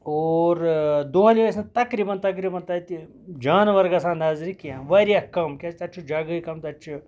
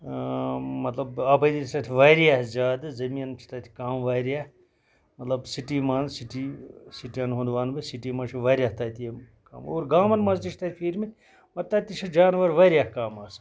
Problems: none marked